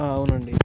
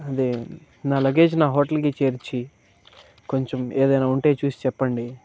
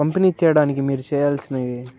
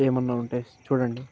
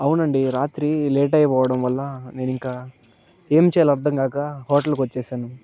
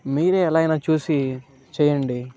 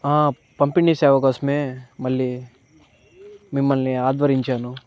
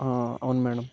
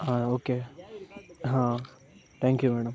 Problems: background sounds at intervals, background conversations at intervals